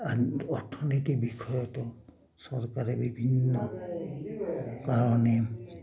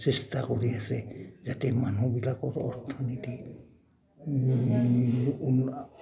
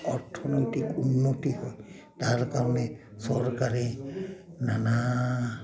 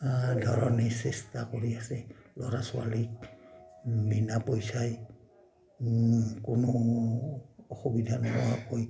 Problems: none marked